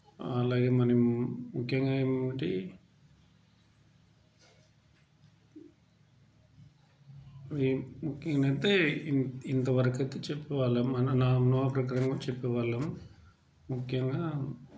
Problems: background sounds at intervals, background conversations at intervals